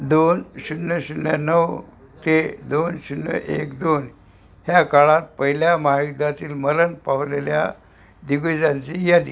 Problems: none marked